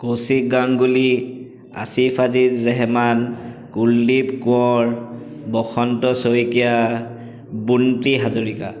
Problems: echo